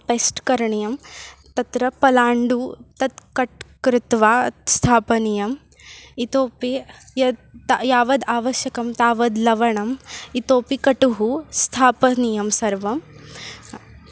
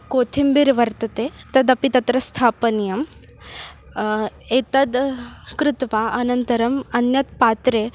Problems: none marked